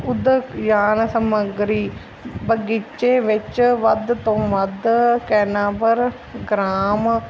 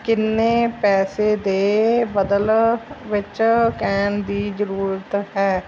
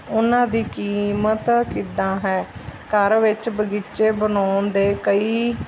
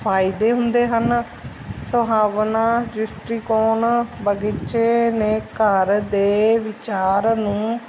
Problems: none marked